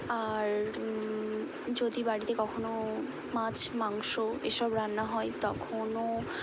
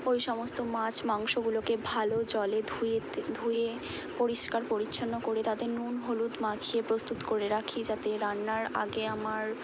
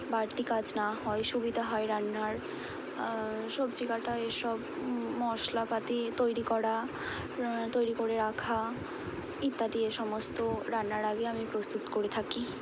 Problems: none marked